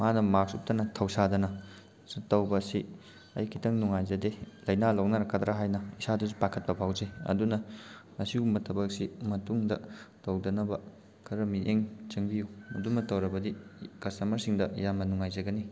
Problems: background sounds at intervals